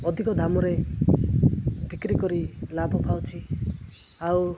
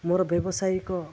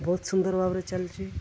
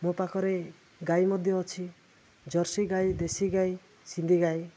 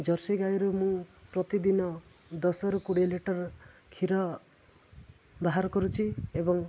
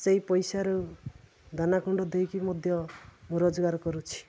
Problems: constant background noise